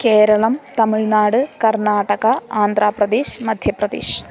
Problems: constant background noise